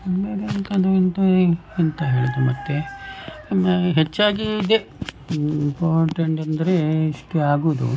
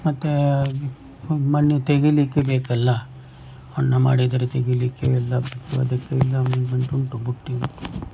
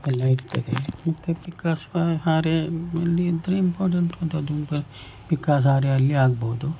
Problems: background sounds at intervals